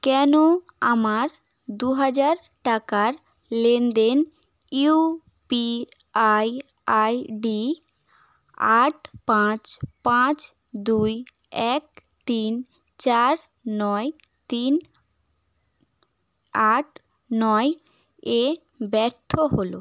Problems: background sounds at intervals